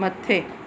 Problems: constant background noise